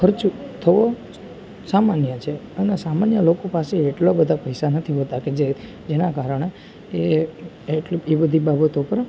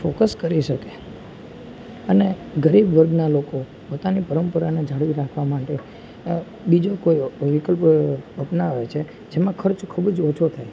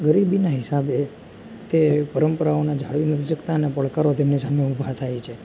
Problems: constant background noise, background conversations at intervals